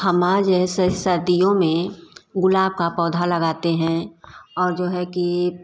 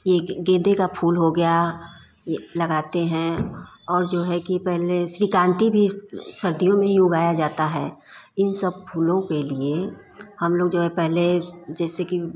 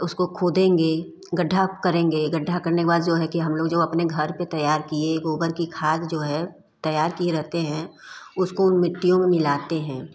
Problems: constant background noise, background conversations at intervals